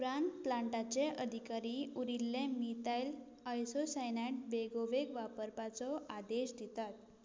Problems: low volume